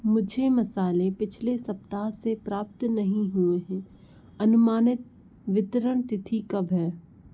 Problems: background sounds at intervals